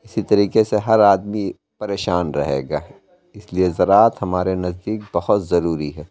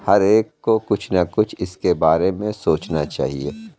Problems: constant background noise